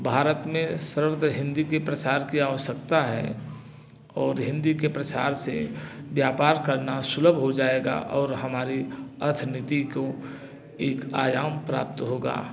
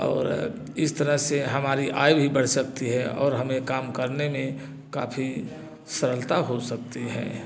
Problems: none marked